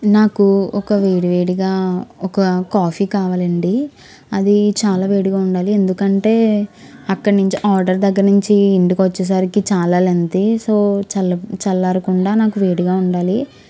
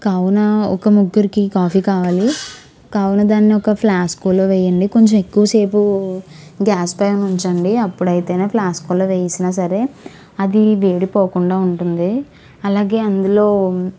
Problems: background sounds at intervals